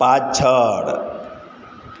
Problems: constant background noise, echo